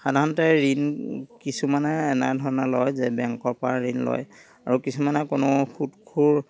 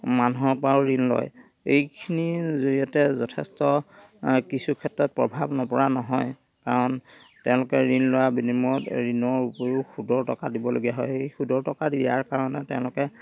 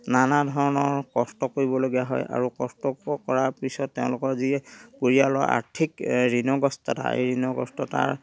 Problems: background sounds at intervals, background conversations at intervals